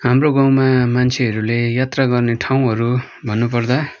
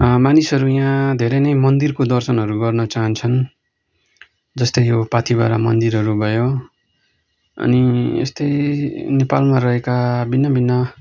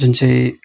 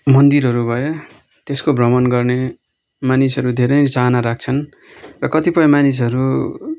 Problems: none marked